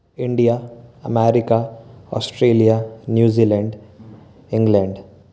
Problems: none marked